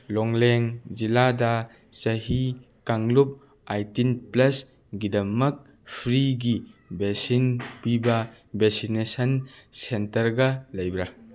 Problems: background sounds at intervals